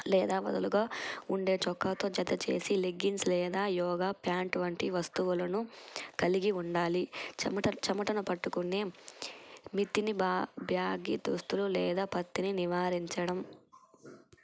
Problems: constant background noise